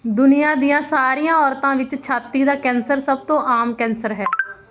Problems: none marked